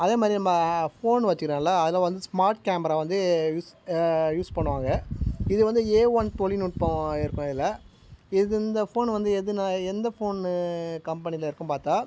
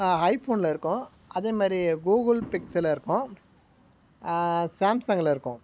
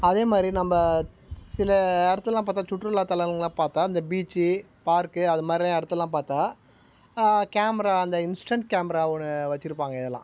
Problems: background sounds at intervals